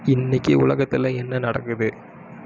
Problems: background sounds at intervals